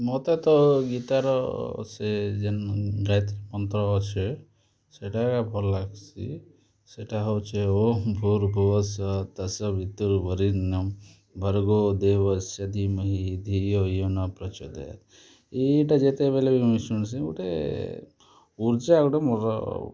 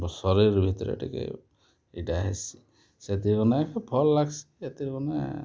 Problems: none marked